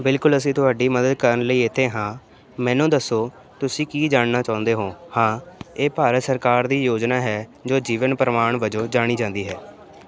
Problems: constant background noise